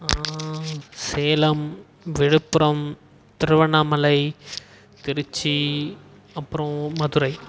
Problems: background sounds at intervals